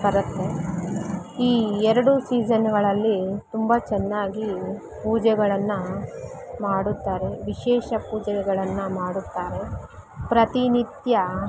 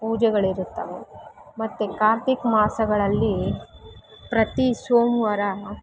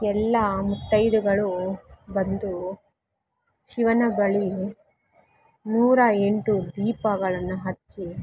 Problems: none marked